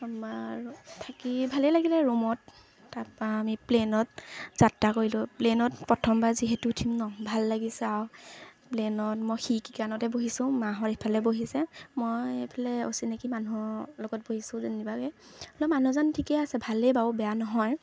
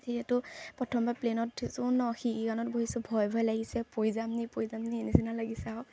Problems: none marked